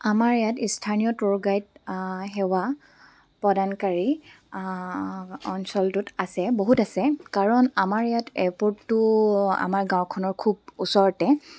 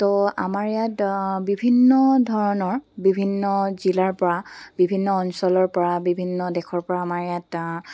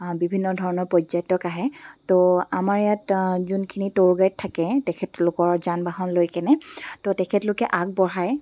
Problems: background sounds at intervals